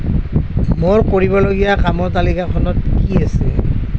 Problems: constant background noise